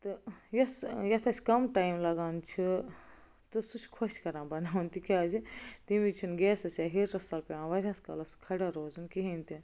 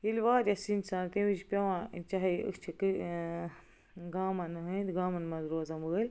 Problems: none marked